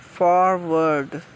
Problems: constant background noise